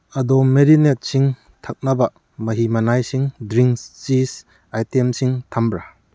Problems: none marked